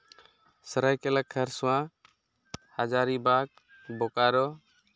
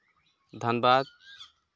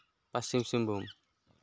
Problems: background sounds at intervals